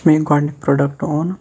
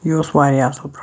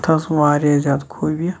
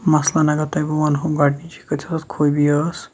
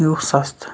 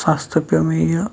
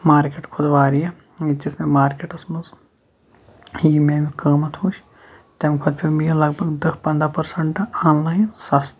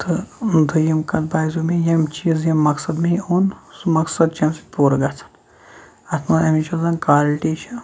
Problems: none marked